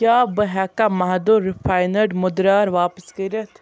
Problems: background sounds at intervals